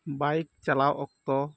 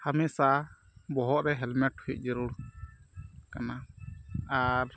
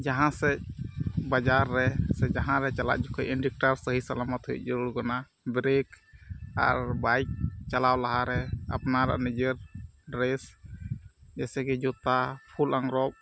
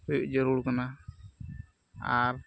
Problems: background sounds at intervals